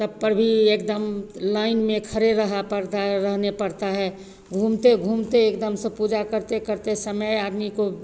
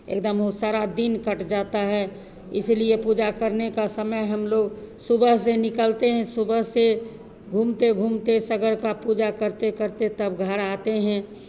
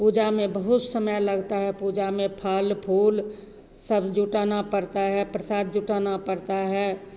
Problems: constant background noise, echo